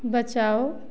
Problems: none marked